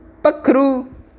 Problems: constant background noise